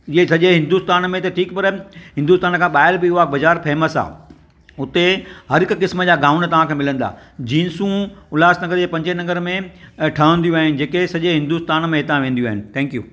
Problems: none marked